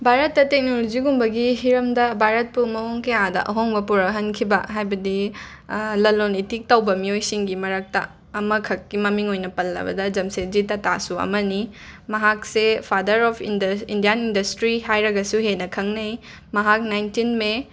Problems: background sounds at intervals